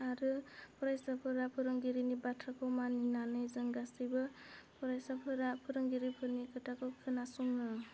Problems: constant background noise